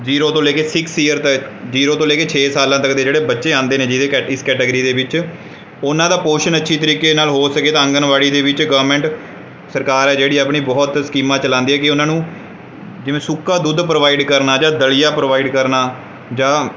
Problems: background sounds at intervals